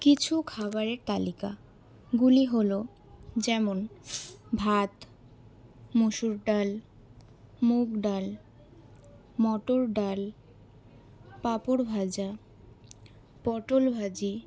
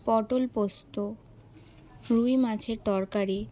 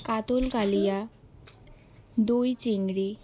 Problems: background sounds at intervals, background conversations at intervals